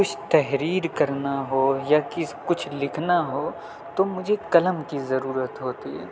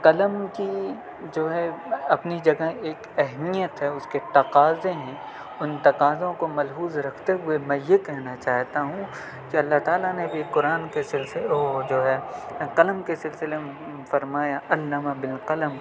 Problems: none marked